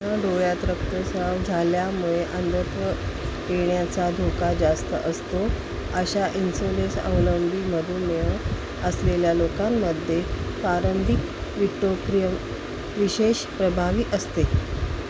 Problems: constant background noise